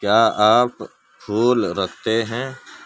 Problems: background sounds at intervals